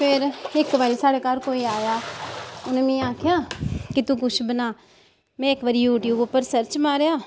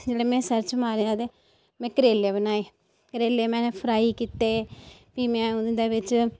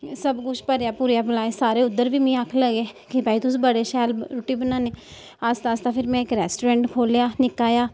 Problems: background sounds at intervals